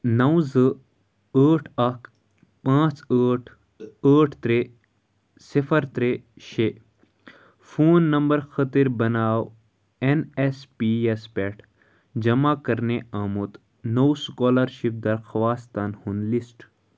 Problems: none marked